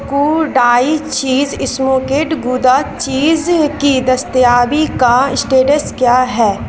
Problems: constant background noise